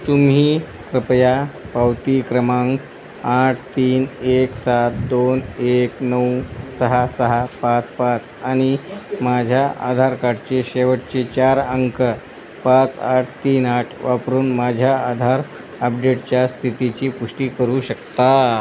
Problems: constant background noise